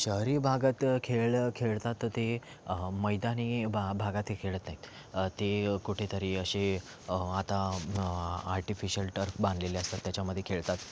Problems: constant background noise, background conversations at intervals